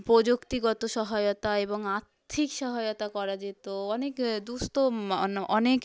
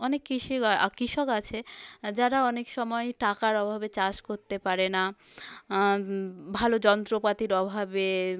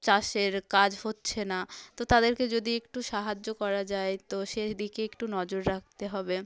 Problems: background conversations at intervals